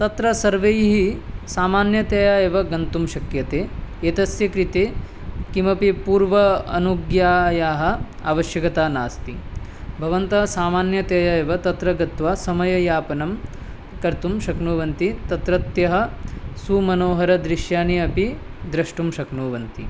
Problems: none marked